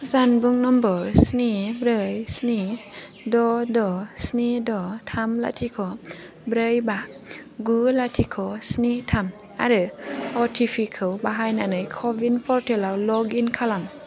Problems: constant background noise